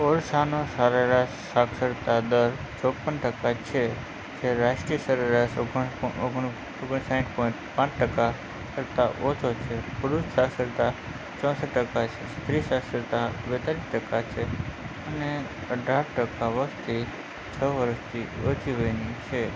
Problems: constant background noise, low volume